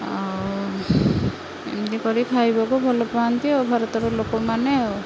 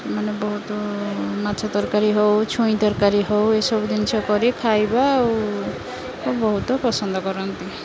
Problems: constant background noise, continuous background conversations